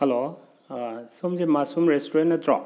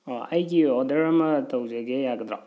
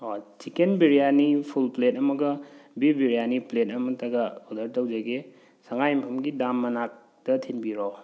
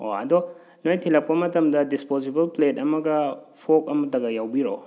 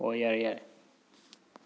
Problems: none marked